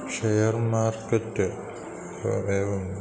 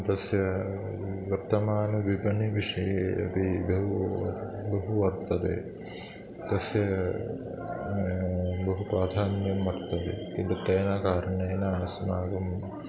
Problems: constant background noise, continuous background conversations